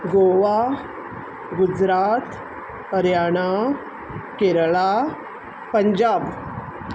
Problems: background sounds at intervals